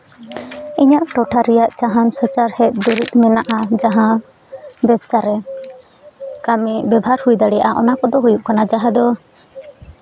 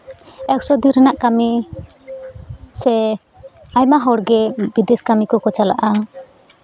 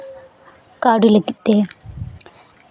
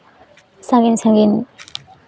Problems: none marked